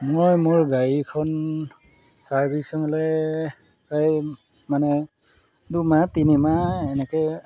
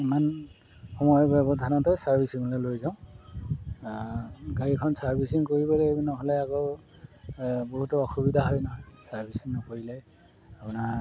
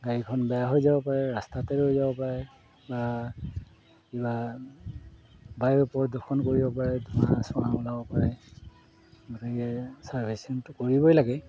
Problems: background sounds at intervals